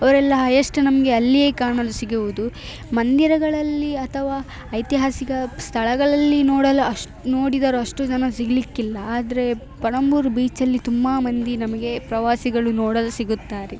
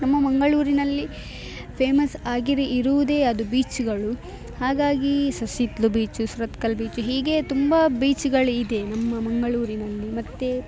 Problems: none marked